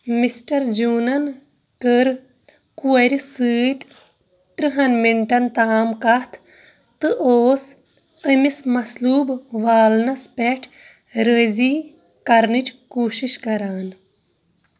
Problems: background sounds at intervals, background conversations at intervals